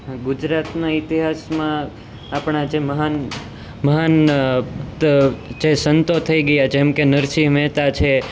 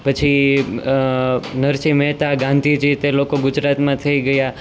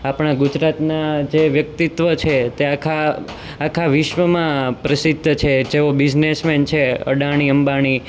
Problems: constant background noise